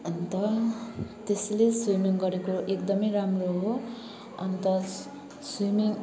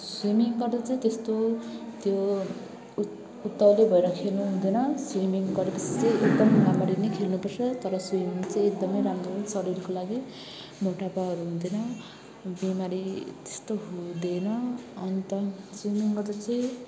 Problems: constant background noise